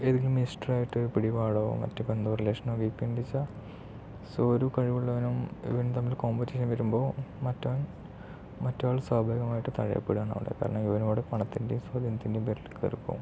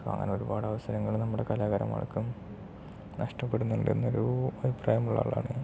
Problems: low volume